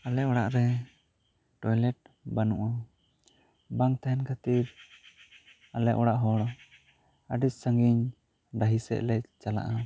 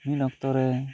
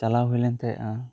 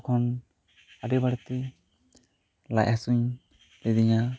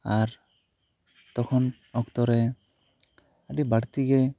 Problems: none marked